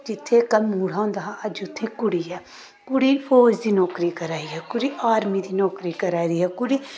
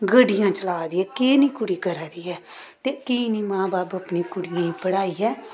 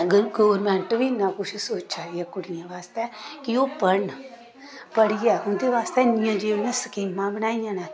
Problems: constant background noise